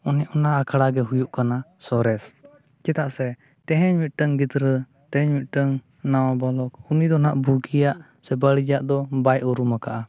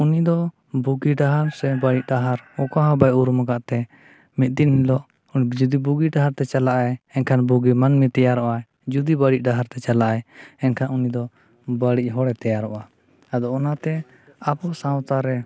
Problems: none marked